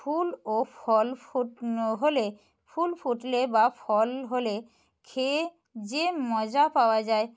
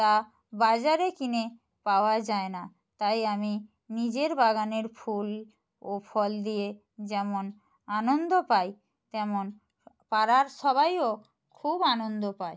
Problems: none marked